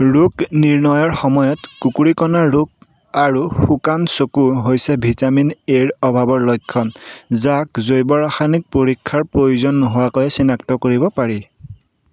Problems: none marked